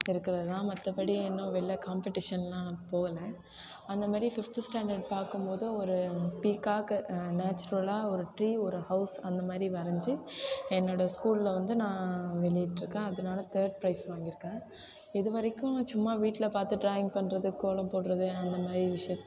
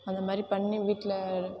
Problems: background sounds at intervals